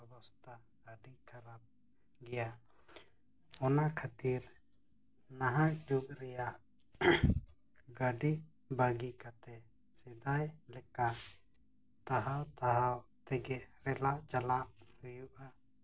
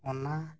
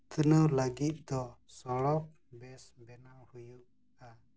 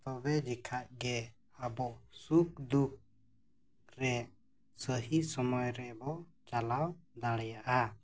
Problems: low volume